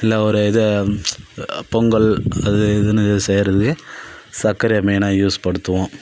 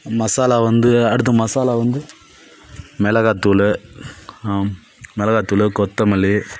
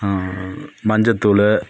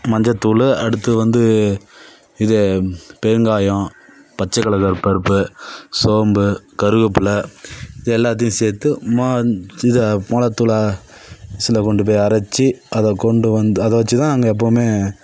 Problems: none marked